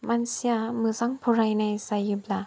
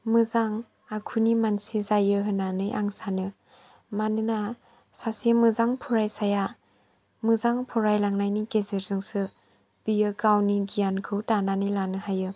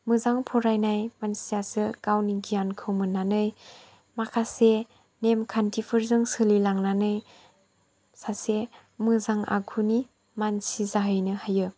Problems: low volume